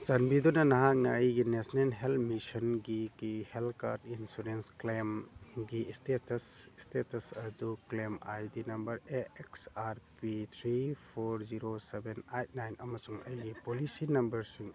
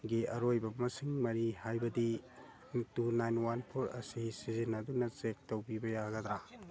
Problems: background sounds at intervals, background conversations at intervals